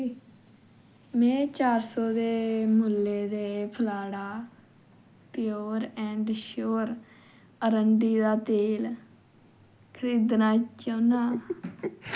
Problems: constant background noise